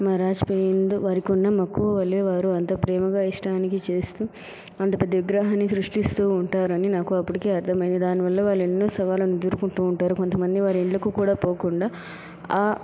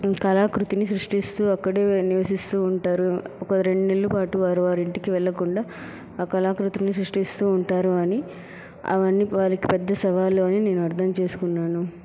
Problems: none marked